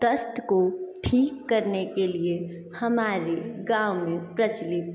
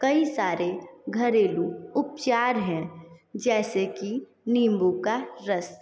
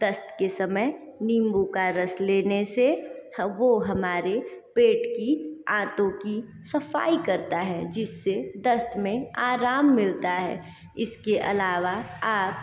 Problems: continuous background conversations, echo